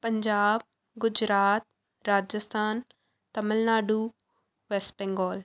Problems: background sounds at intervals